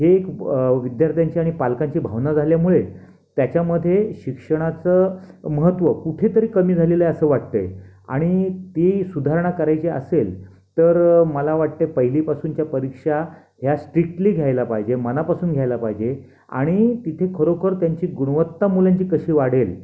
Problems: constant background noise